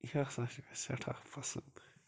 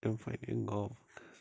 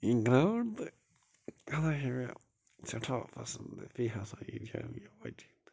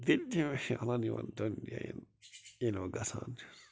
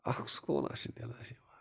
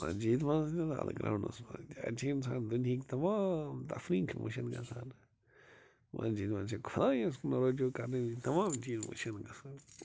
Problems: constant background noise